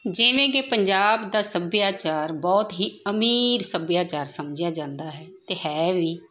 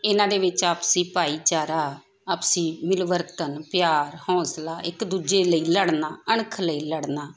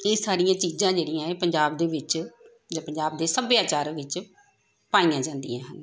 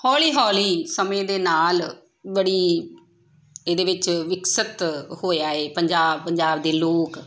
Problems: background conversations at intervals